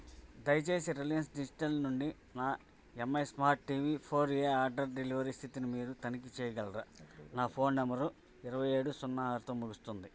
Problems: background conversations at intervals